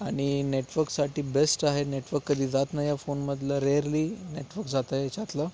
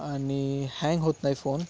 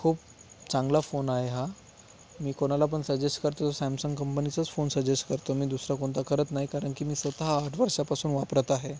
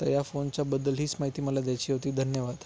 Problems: none marked